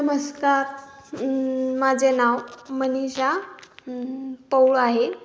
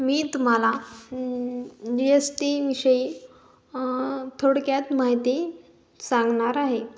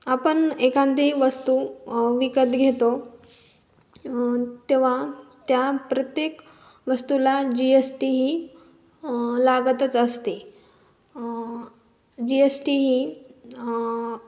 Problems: background sounds at intervals